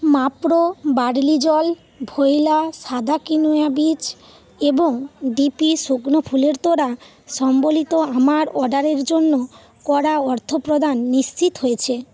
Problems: continuous background conversations